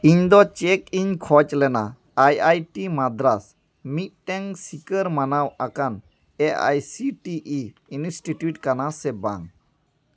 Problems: background conversations at intervals